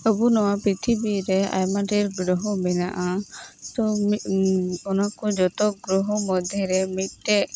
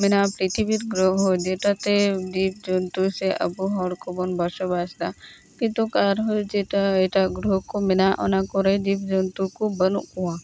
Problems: constant background noise